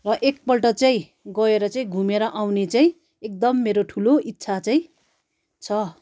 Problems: none marked